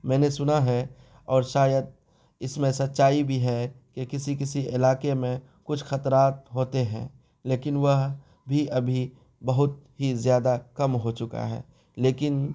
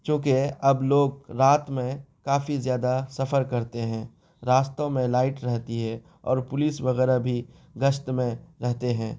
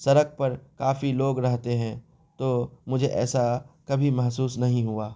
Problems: constant background noise